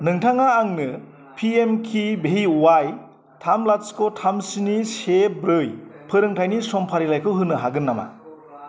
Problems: constant background noise